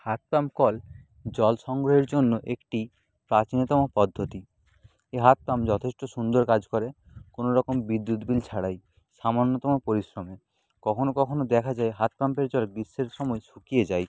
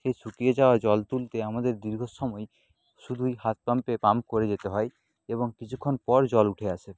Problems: constant background noise